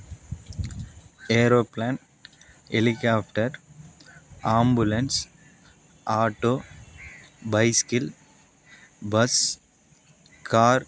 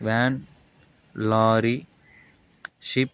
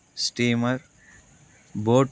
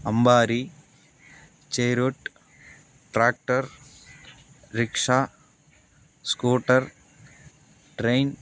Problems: constant background noise